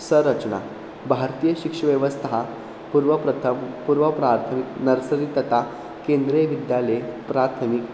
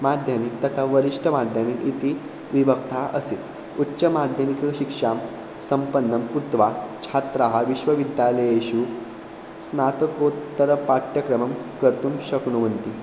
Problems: constant background noise